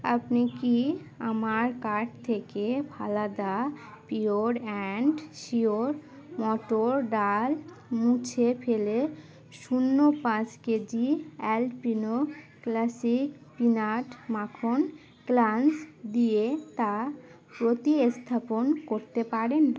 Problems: constant background noise